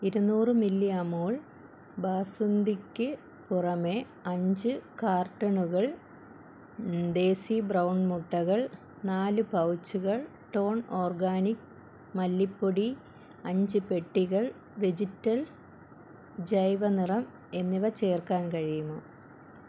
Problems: constant background noise